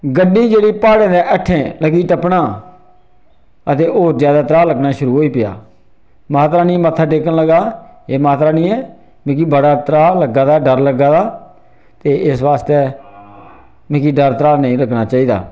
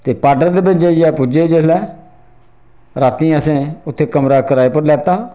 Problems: none marked